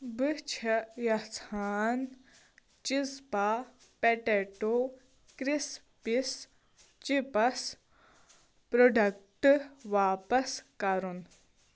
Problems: background sounds at intervals